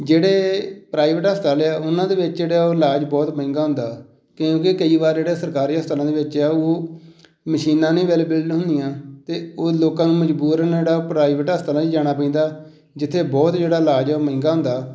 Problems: none marked